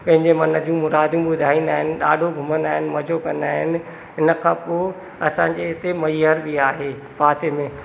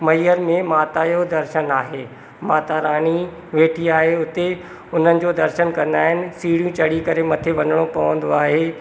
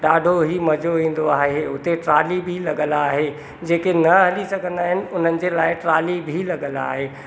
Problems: constant background noise, echo